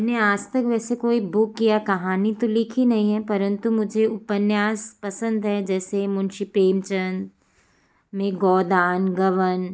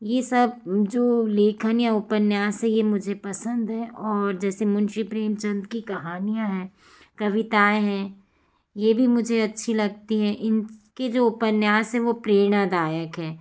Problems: none marked